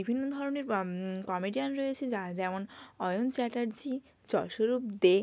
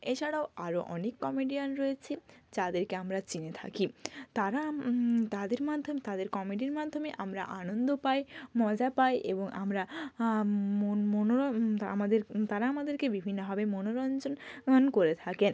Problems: constant background noise